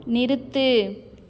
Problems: continuous background conversations